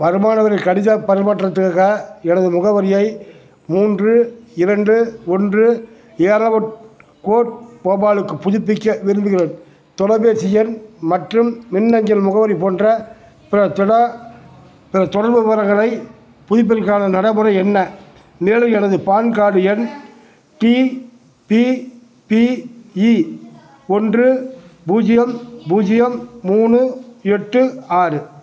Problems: background sounds at intervals